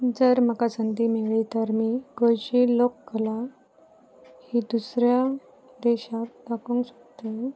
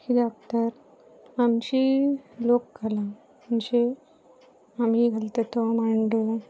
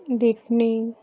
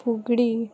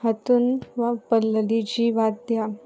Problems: constant background noise